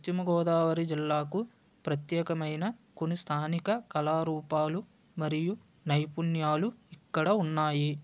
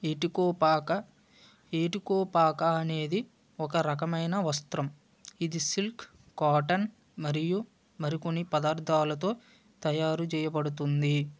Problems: none marked